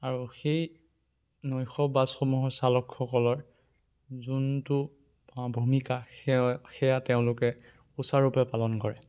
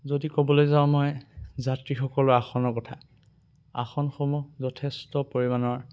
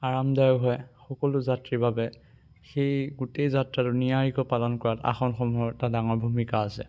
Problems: none marked